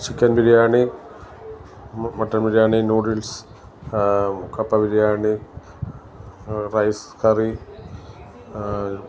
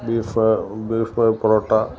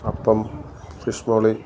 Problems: background sounds at intervals